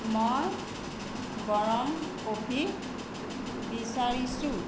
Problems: constant background noise